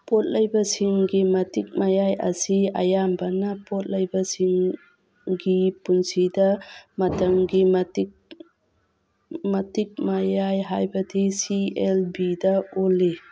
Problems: background sounds at intervals